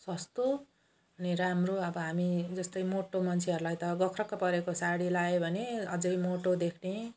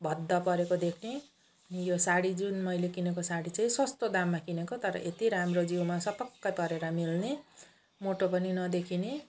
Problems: none marked